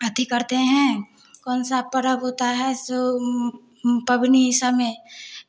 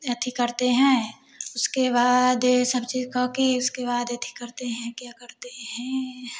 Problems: none marked